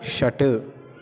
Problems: constant background noise, continuous background conversations